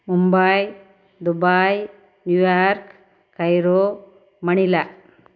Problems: constant background noise